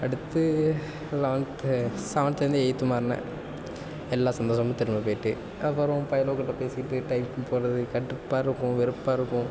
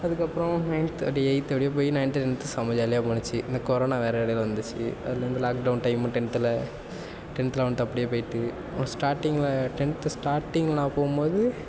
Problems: none marked